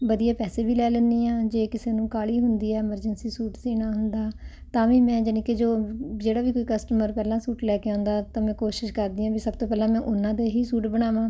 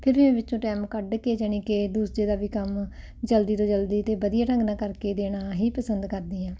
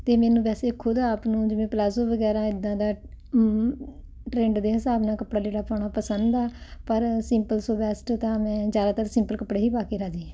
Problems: constant background noise